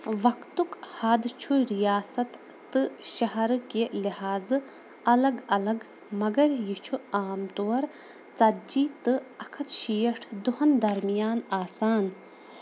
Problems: constant background noise